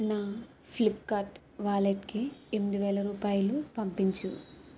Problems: constant background noise